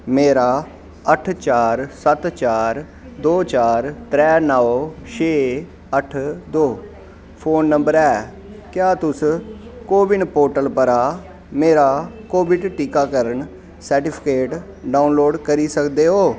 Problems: constant background noise